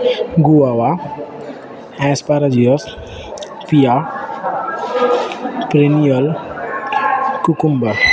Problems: none marked